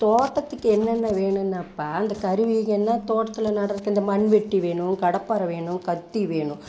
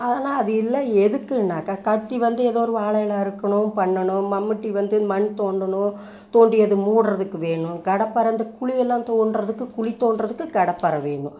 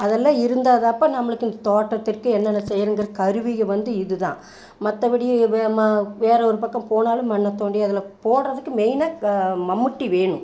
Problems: background sounds at intervals